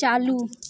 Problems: continuous background conversations